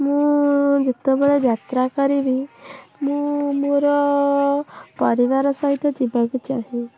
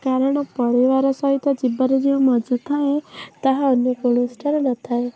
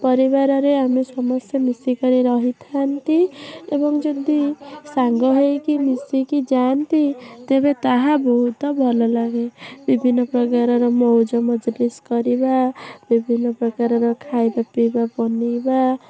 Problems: constant background noise